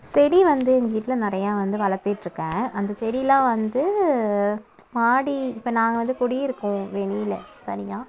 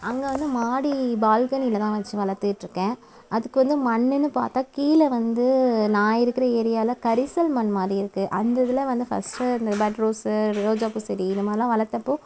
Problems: background sounds at intervals